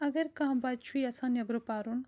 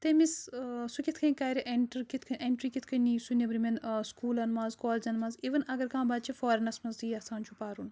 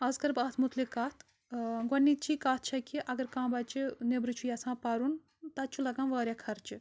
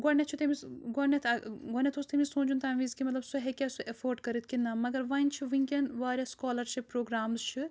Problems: background sounds at intervals